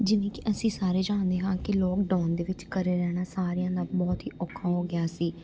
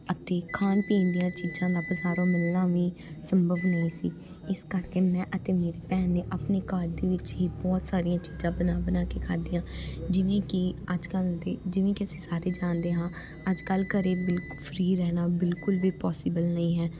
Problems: background sounds at intervals